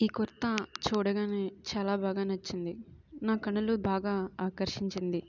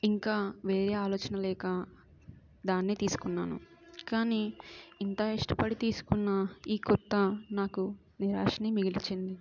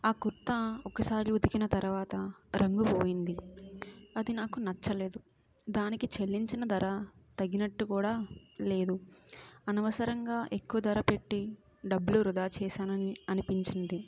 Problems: background sounds at intervals